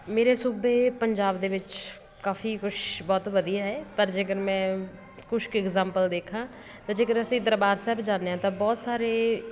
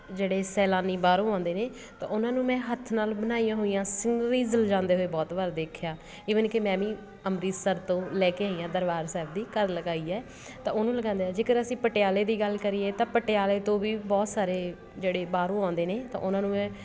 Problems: constant background noise